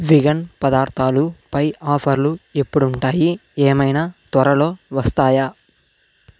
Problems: none marked